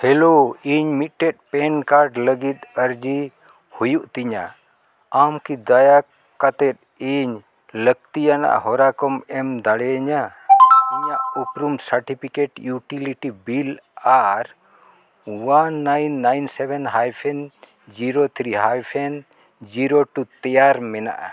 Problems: none marked